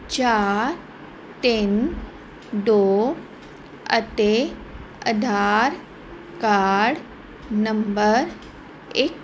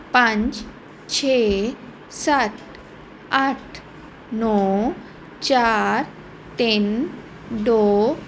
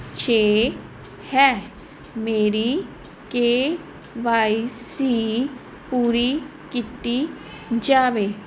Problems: none marked